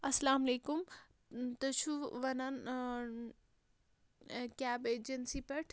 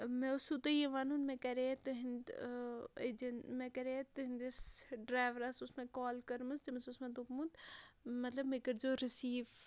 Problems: none marked